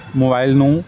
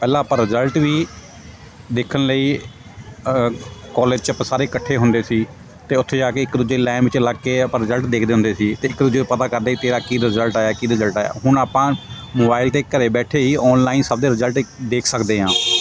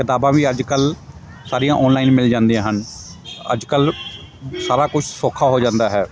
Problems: constant background noise